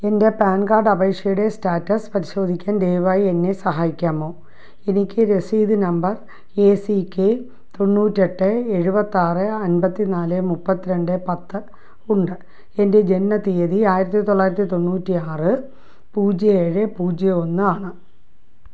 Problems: none marked